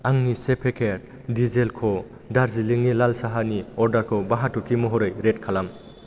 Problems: constant background noise